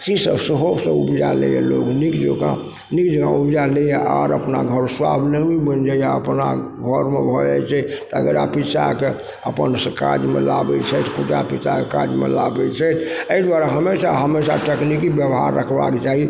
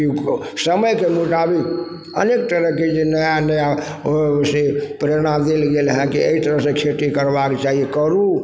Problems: background sounds at intervals, background conversations at intervals